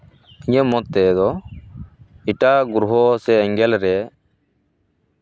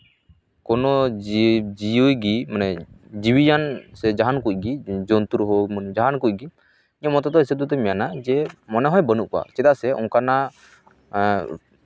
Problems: none marked